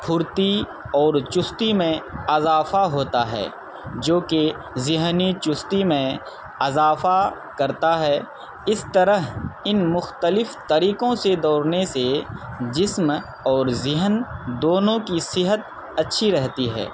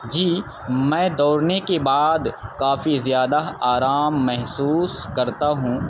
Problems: constant background noise